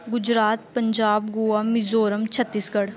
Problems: constant background noise